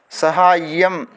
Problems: constant background noise